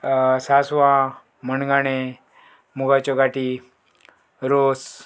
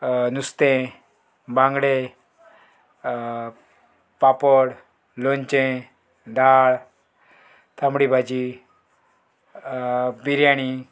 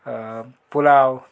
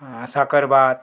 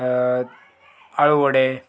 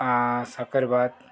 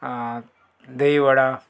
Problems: background sounds at intervals